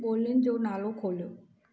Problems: constant background noise